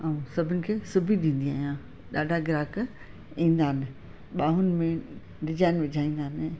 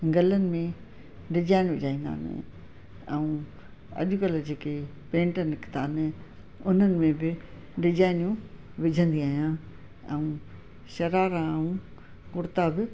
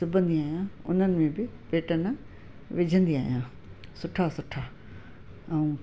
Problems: constant background noise, echo